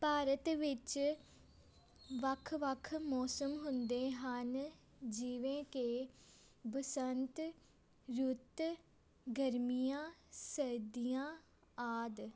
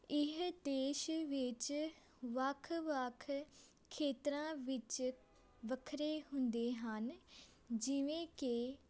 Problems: background sounds at intervals, background conversations at intervals